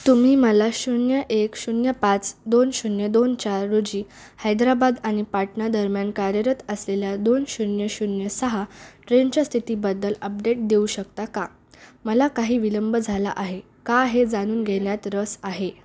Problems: background sounds at intervals, background conversations at intervals